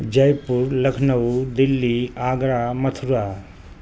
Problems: constant background noise